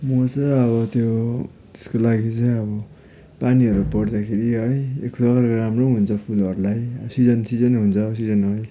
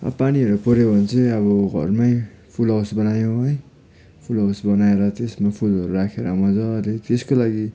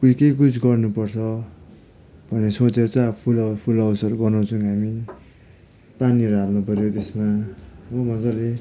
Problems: background sounds at intervals